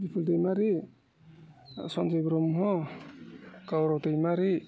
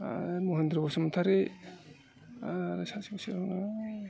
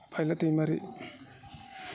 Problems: none marked